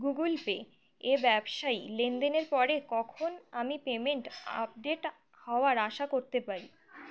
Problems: background sounds at intervals